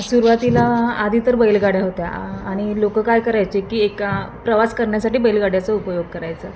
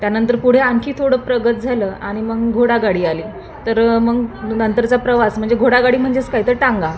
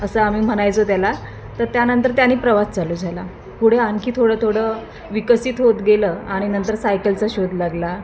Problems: none marked